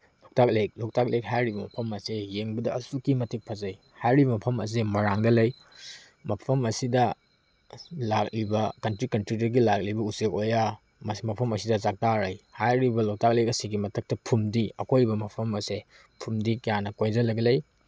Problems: none marked